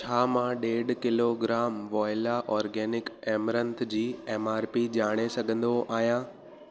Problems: constant background noise, echo